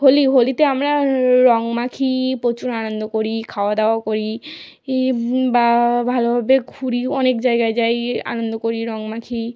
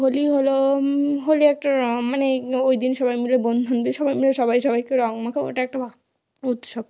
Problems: none marked